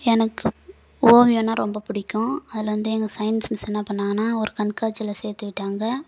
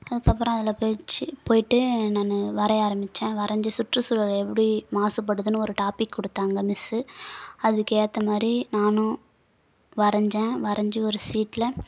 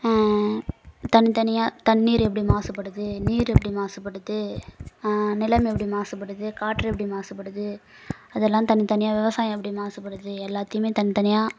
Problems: background sounds at intervals